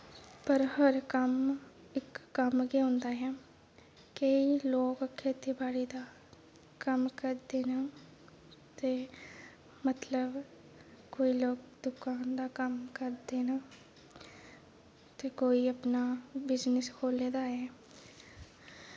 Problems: background sounds at intervals